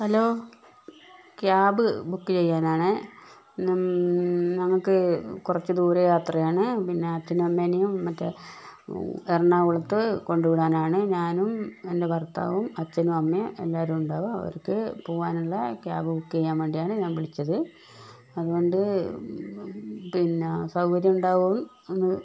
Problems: none marked